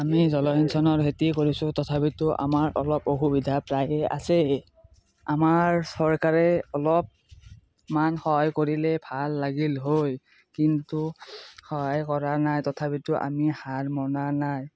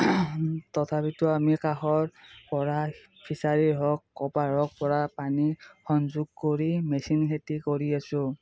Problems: none marked